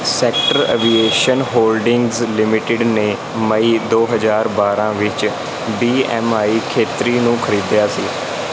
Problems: none marked